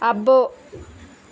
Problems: constant background noise